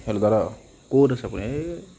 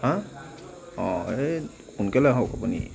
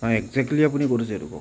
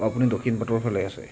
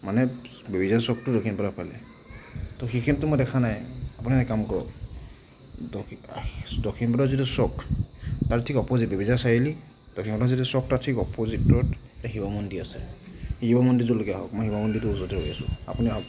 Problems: constant background noise, background conversations at intervals